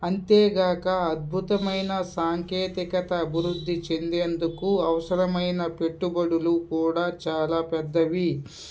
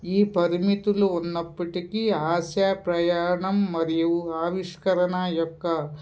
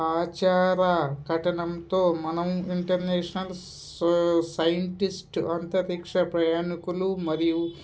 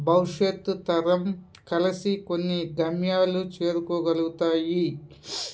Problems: constant background noise